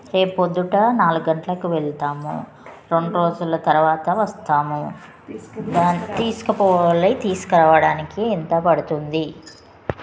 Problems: constant background noise, background conversations at intervals